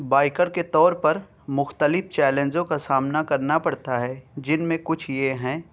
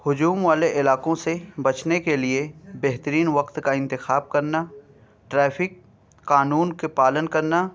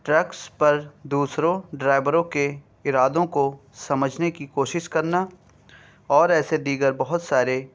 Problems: none marked